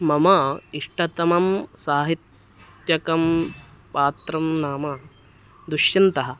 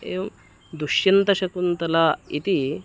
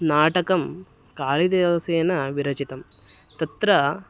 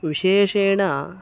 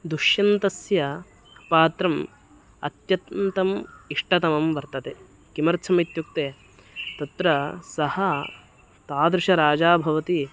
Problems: none marked